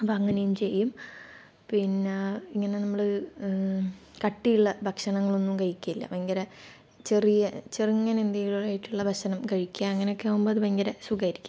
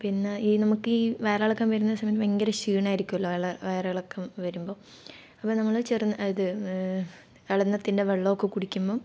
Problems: low volume